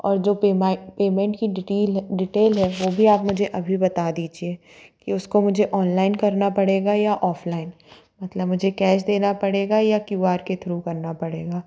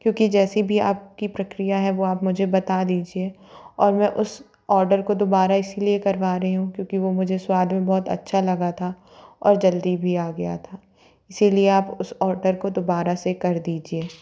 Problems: none marked